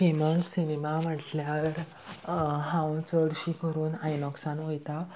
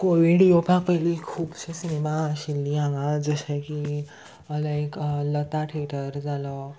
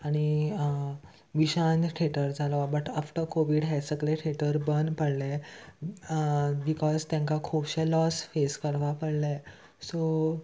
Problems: constant background noise